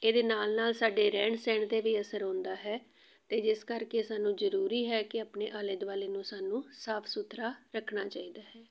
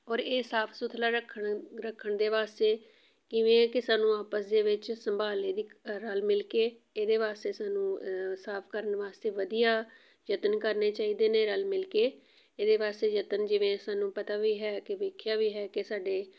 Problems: none marked